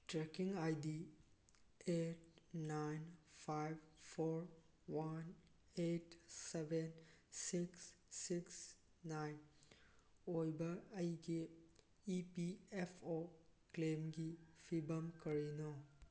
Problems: background sounds at intervals